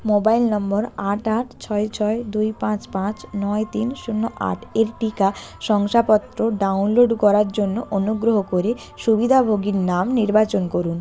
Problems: constant background noise, background conversations at intervals